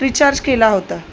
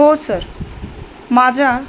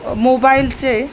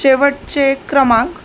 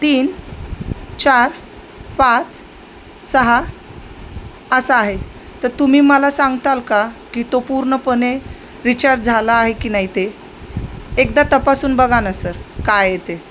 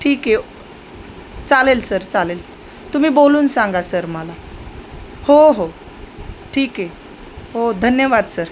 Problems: constant background noise